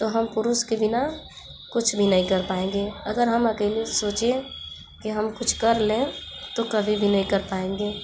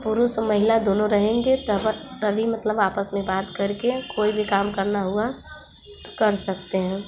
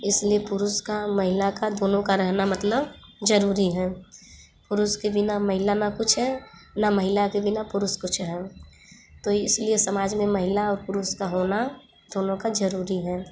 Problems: none marked